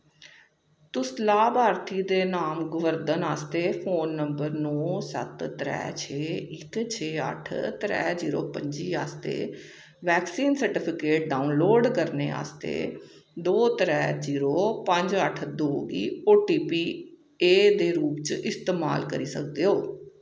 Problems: echo